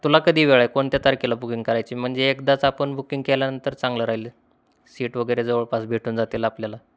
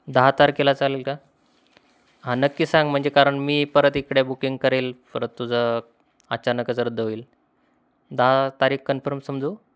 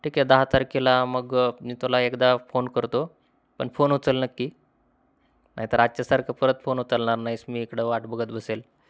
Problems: constant background noise